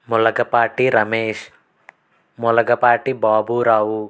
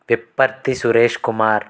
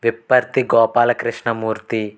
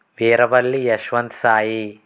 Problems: constant background noise